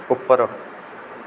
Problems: background sounds at intervals